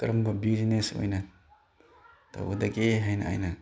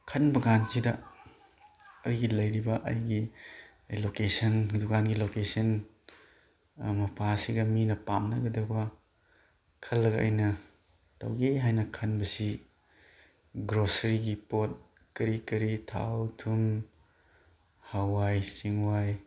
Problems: background sounds at intervals